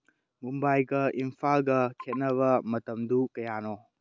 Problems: low volume